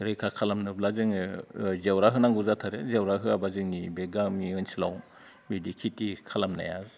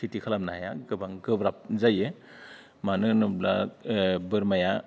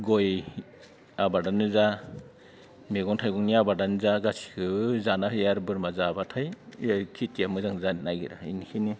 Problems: low volume